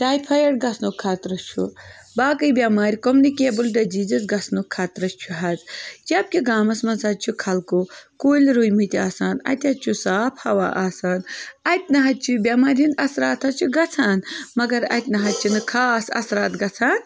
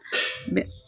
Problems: background sounds at intervals